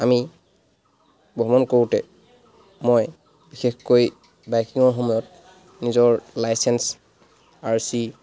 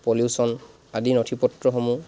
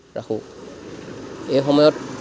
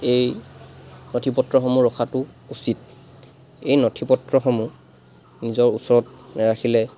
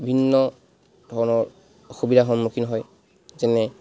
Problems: constant background noise